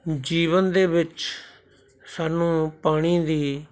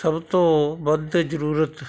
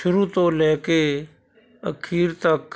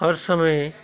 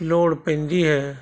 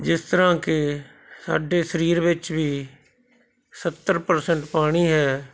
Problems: constant background noise